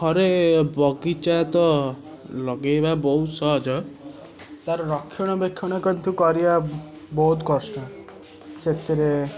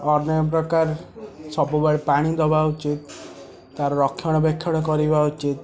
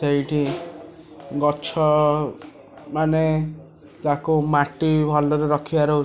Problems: constant background noise, continuous background conversations